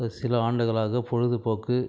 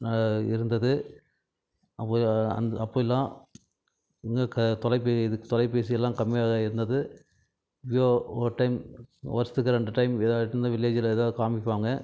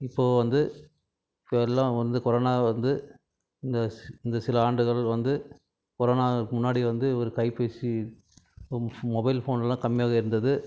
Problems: background conversations at intervals